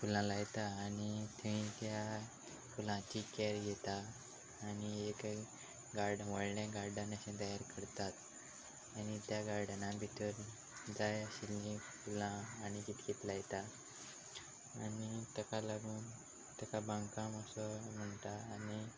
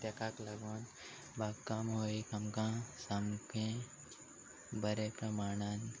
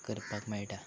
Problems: none marked